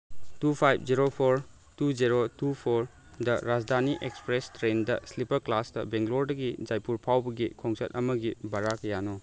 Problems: none marked